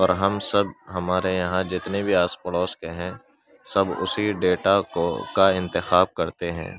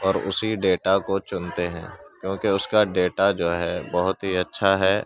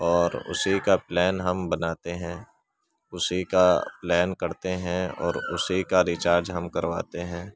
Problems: constant background noise, background conversations at intervals